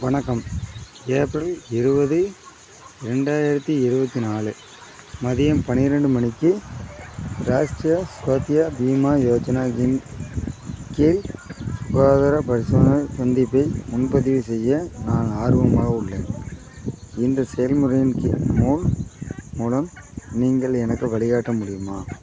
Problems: constant background noise